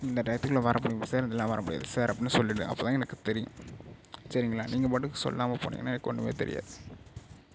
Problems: none marked